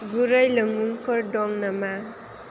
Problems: none marked